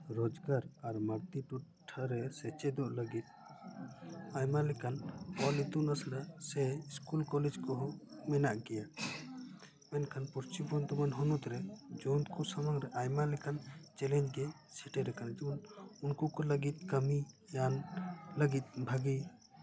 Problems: background sounds at intervals, background conversations at intervals